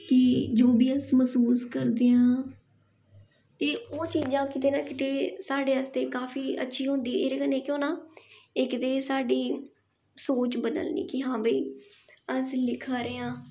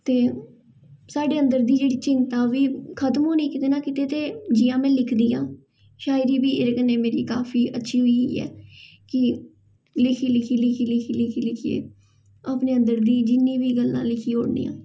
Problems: background sounds at intervals, echo